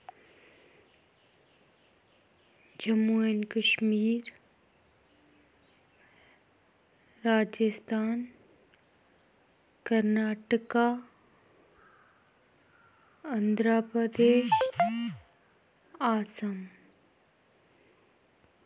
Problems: background sounds at intervals